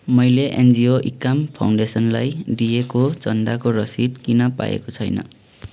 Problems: constant background noise